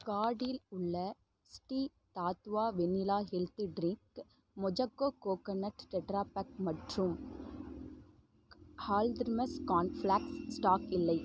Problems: background sounds at intervals, low volume